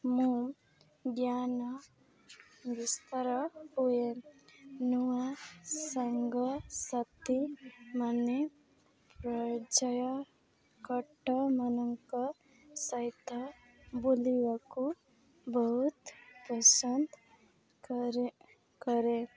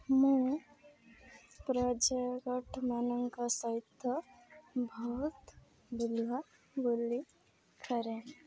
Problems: none marked